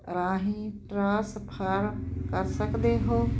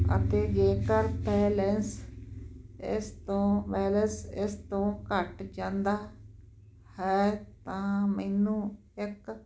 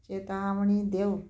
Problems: none marked